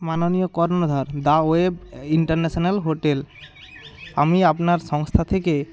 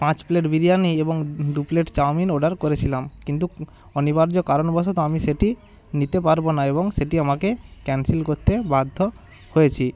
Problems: constant background noise, background conversations at intervals